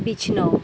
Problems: constant background noise